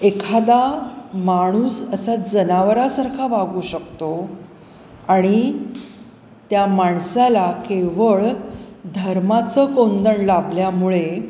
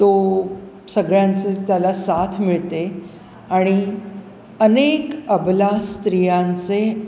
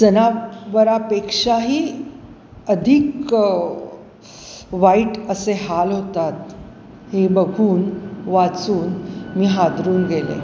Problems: constant background noise